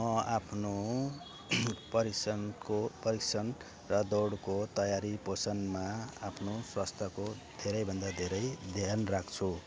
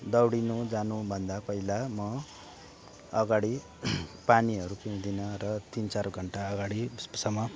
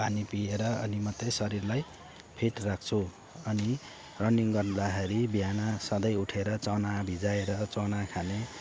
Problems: constant background noise